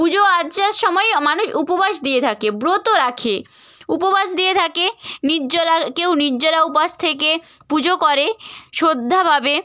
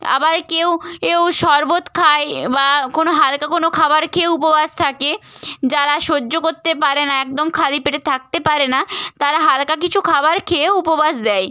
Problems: none marked